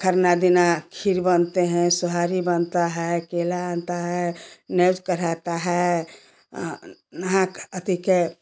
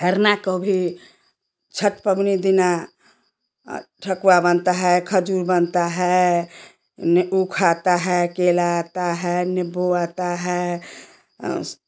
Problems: constant background noise